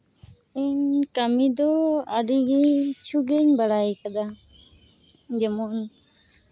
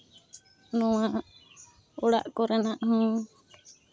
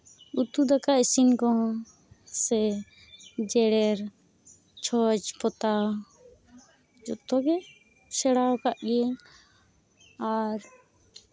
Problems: background sounds at intervals